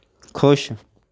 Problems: background conversations at intervals